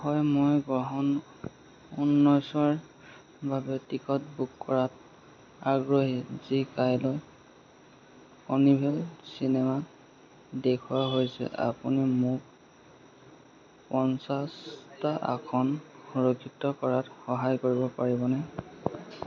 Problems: constant background noise, background conversations at intervals